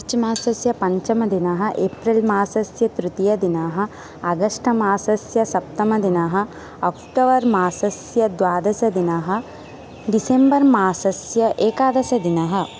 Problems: none marked